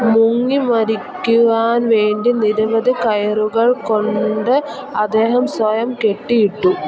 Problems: continuous background conversations